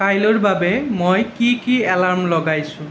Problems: none marked